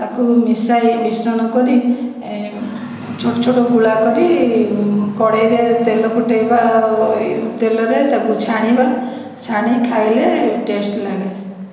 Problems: background sounds at intervals, echo